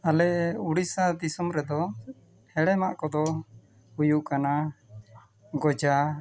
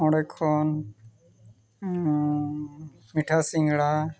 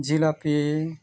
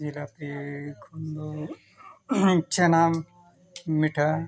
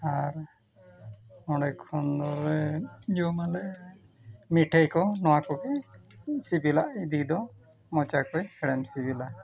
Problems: continuous background conversations